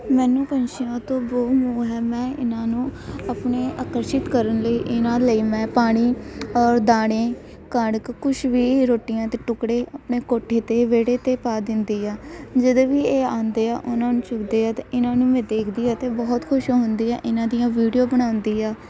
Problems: constant background noise, background conversations at intervals